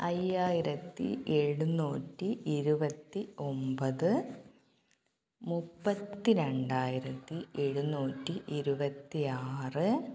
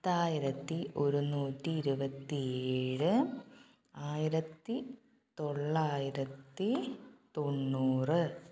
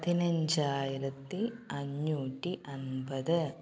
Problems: low volume